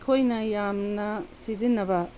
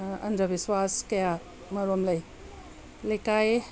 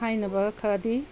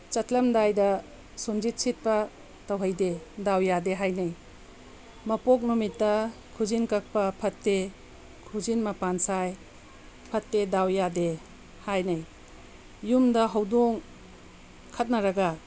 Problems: constant background noise